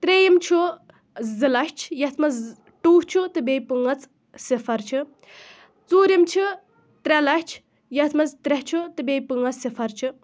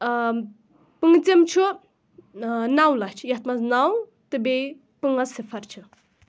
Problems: background sounds at intervals